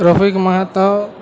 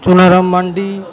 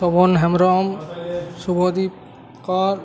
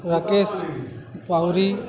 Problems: none marked